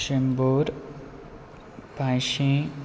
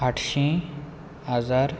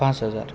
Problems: none marked